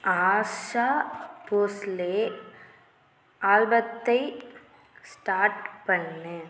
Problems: none marked